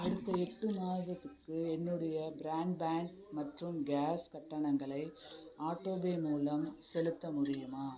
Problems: background conversations at intervals